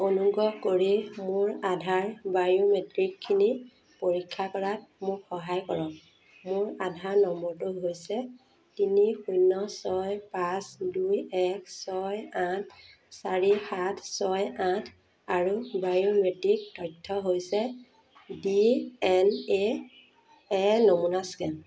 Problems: constant background noise